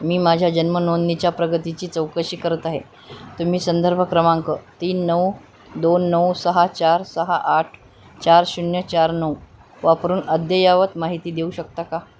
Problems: none marked